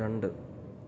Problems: low volume